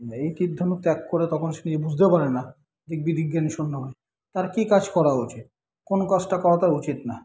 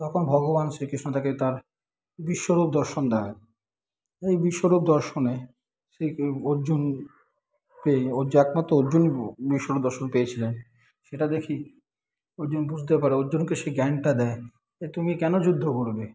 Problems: continuous background conversations